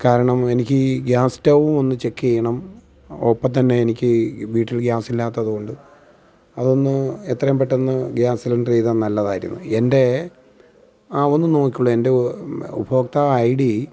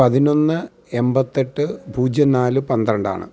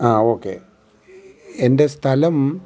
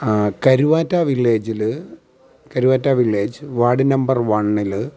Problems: none marked